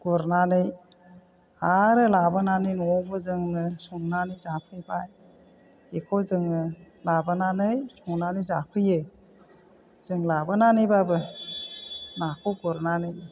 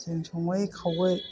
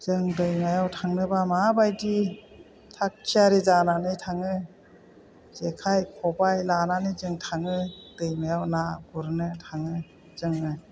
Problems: low volume